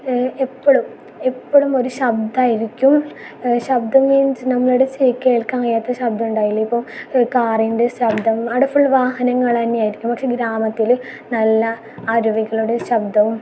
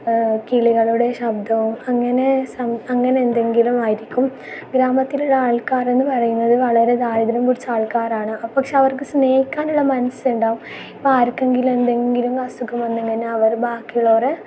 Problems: background sounds at intervals